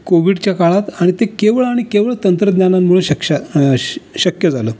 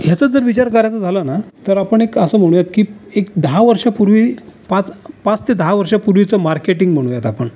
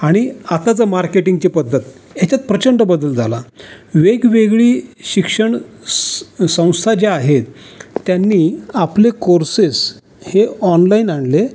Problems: none marked